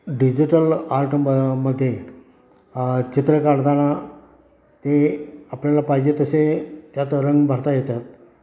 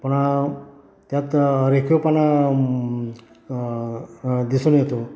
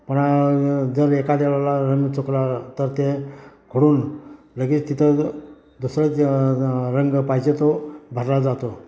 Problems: constant background noise, continuous background conversations